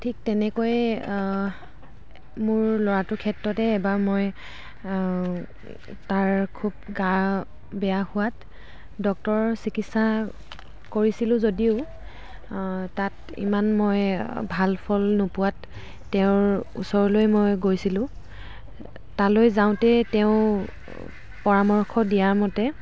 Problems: background sounds at intervals, background conversations at intervals